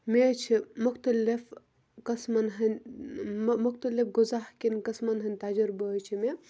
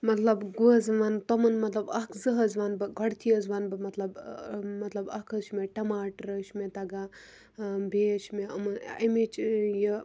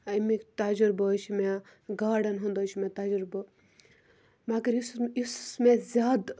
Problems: background sounds at intervals